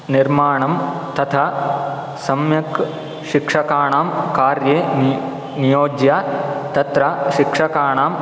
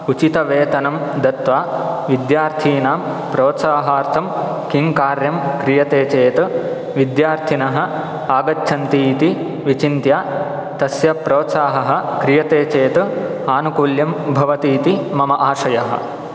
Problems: none marked